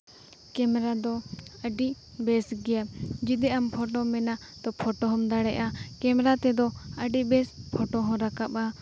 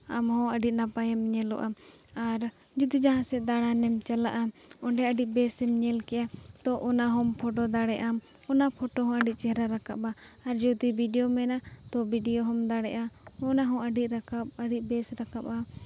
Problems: none marked